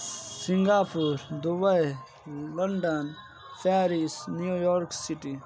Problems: constant background noise